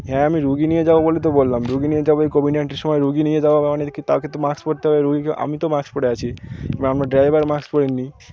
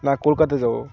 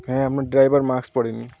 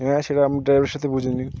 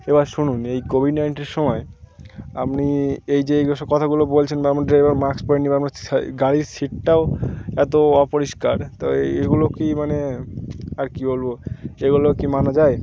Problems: none marked